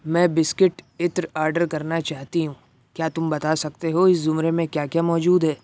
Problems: none marked